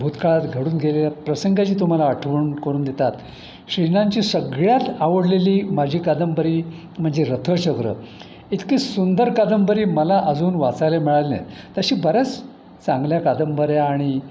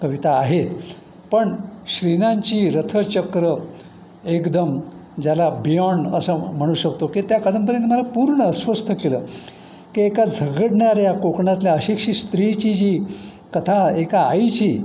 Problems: none marked